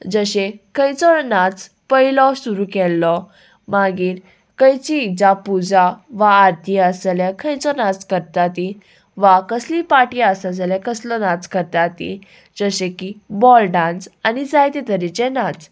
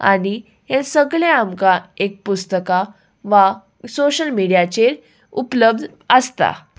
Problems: none marked